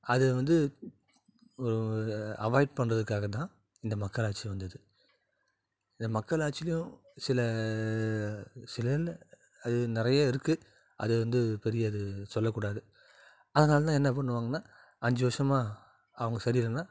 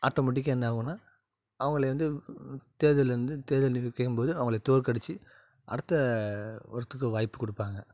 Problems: none marked